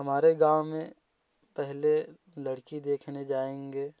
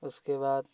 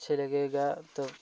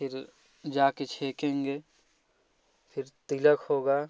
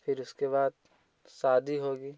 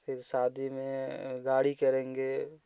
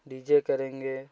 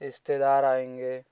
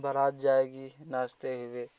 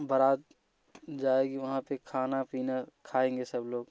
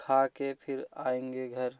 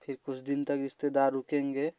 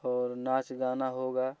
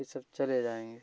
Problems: background sounds at intervals, background conversations at intervals